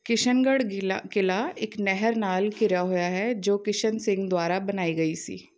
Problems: background sounds at intervals